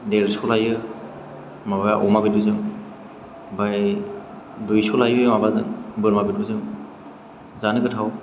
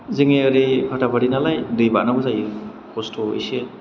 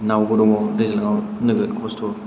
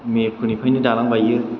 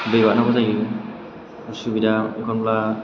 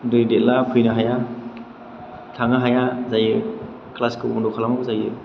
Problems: none marked